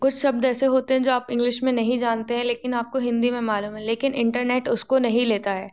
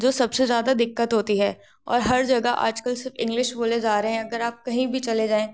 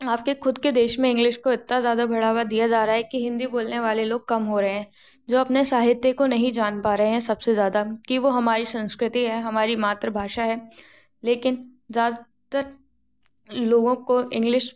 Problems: none marked